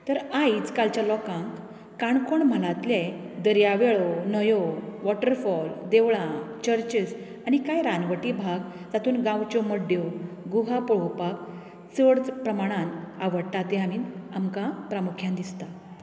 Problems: background conversations at intervals